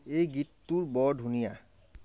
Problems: low volume